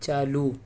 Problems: constant background noise